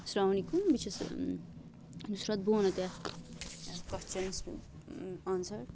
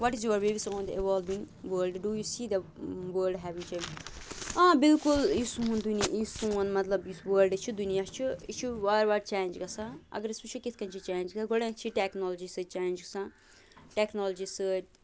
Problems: constant background noise